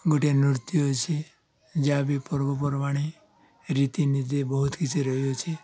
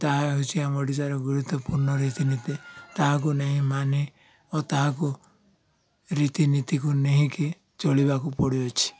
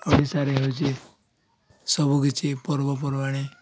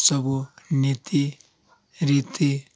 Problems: constant background noise, continuous background conversations